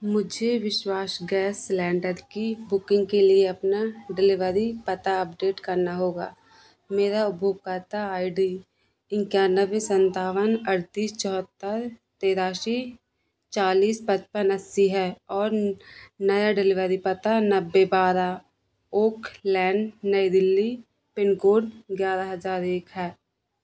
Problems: constant background noise